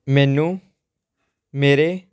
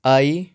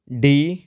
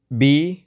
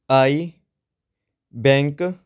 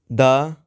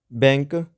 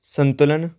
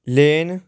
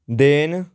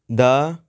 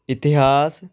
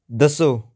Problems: none marked